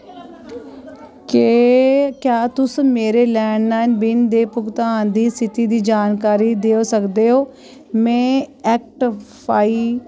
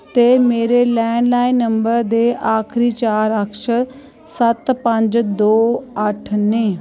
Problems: constant background noise